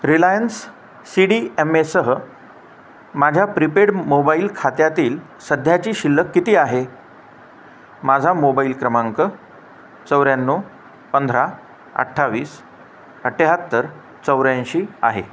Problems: constant background noise